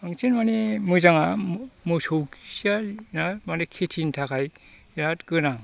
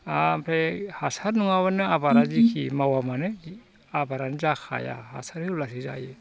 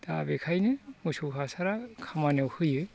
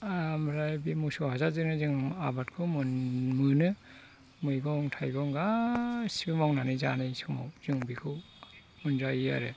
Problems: constant background noise